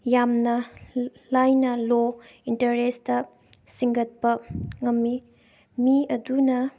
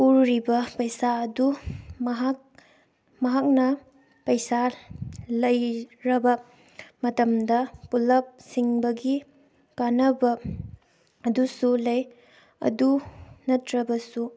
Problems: background sounds at intervals